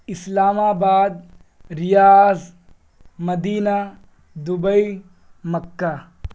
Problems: constant background noise